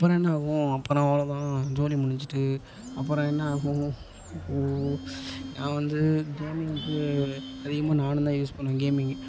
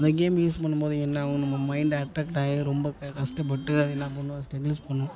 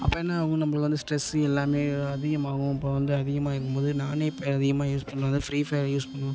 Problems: constant background noise, background conversations at intervals